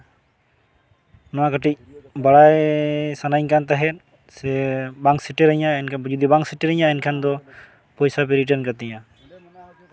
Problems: background sounds at intervals, background conversations at intervals